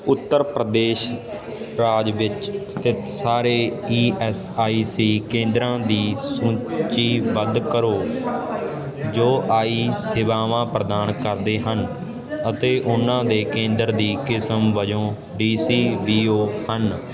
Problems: constant background noise